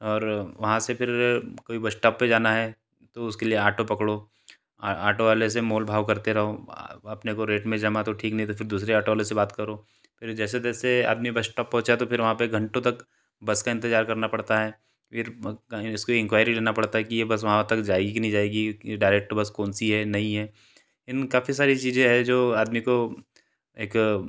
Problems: none marked